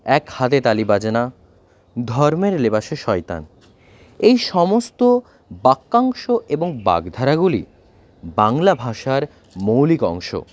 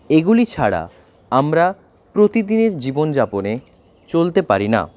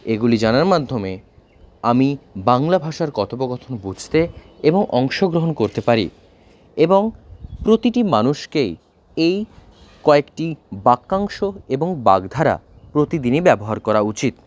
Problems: background sounds at intervals